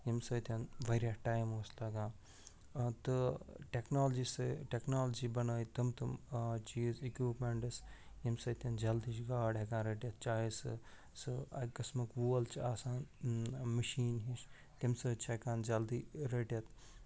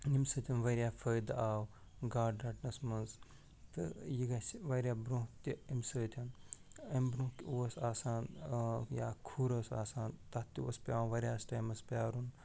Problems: none marked